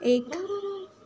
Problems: constant background noise